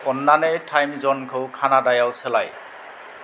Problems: none marked